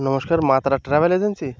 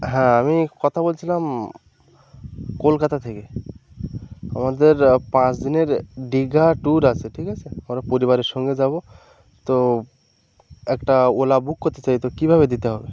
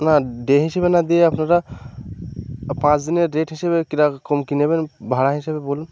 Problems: constant background noise